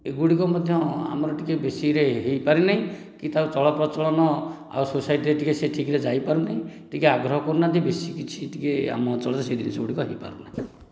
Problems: none marked